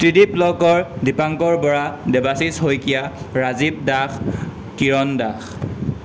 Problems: constant background noise